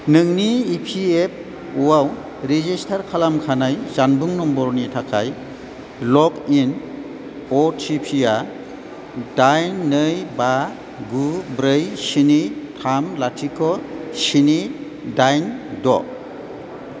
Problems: none marked